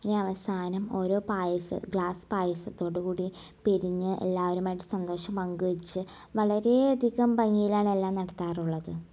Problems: none marked